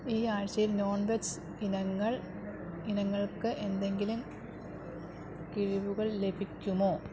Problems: low volume